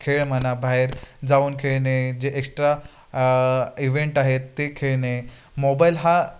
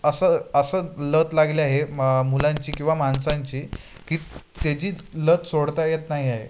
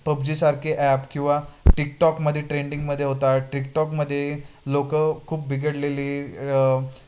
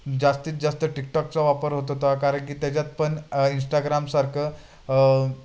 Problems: constant background noise, background conversations at intervals